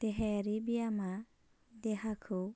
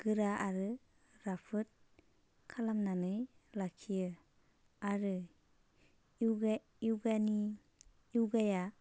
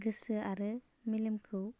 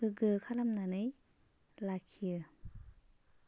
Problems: constant background noise